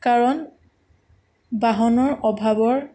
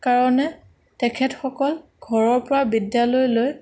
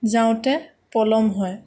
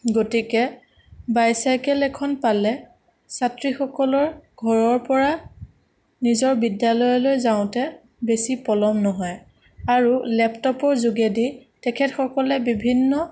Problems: none marked